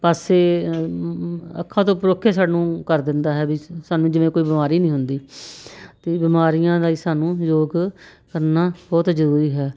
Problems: none marked